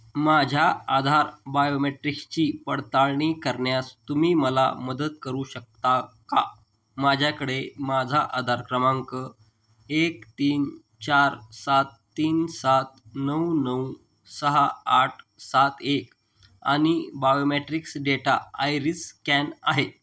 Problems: background sounds at intervals